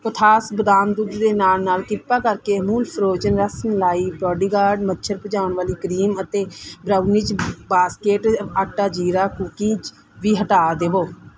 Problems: background sounds at intervals